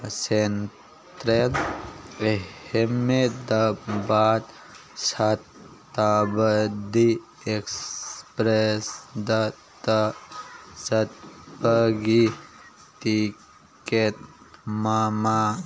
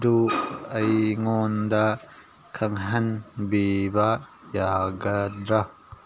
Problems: background sounds at intervals, background conversations at intervals